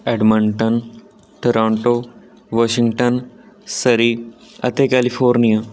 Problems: constant background noise